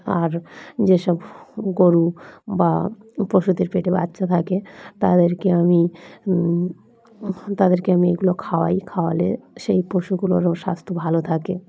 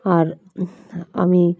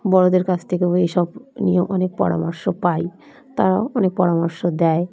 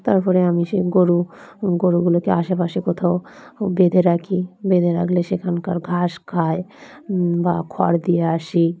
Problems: constant background noise, continuous background conversations